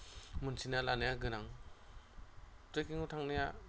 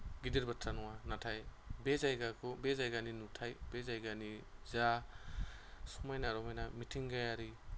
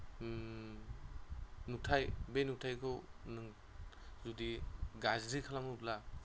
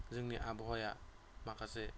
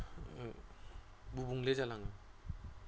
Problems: constant background noise